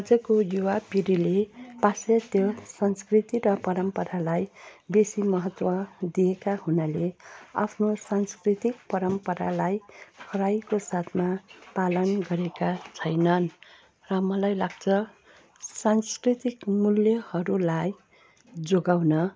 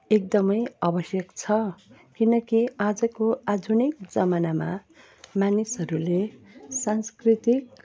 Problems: constant background noise